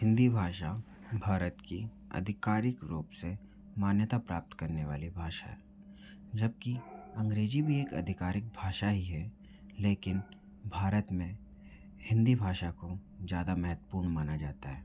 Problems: low volume